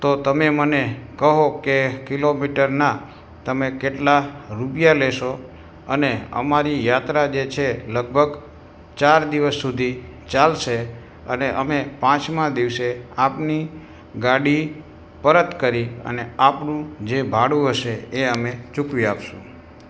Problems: background sounds at intervals